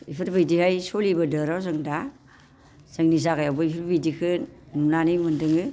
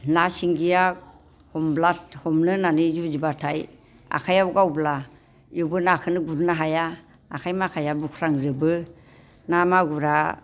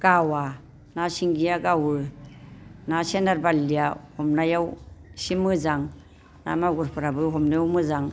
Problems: constant background noise